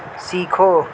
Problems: constant background noise